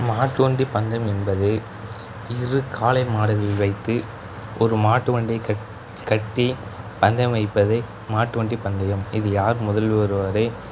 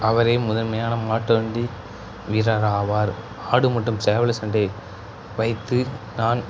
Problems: background sounds at intervals